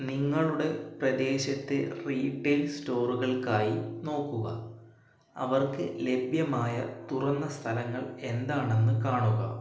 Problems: echo